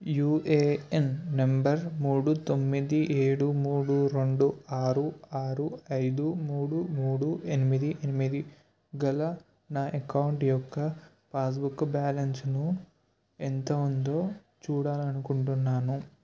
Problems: none marked